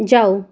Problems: constant background noise